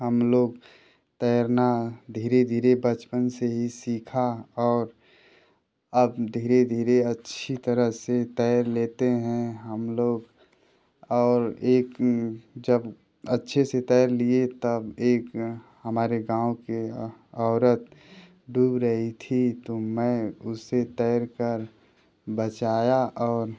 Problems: none marked